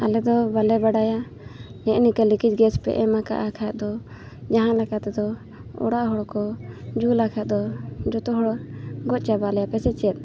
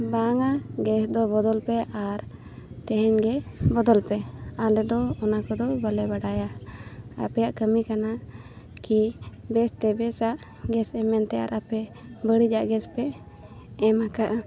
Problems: none marked